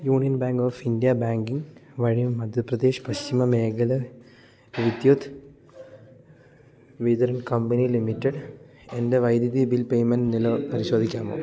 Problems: background sounds at intervals